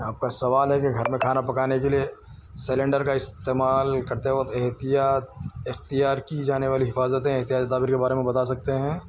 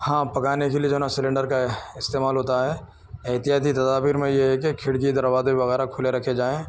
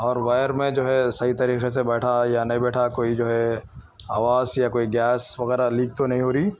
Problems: none marked